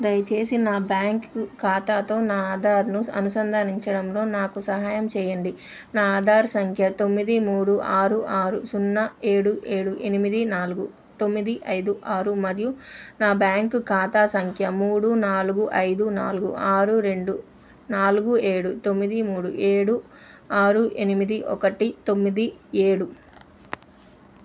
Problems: none marked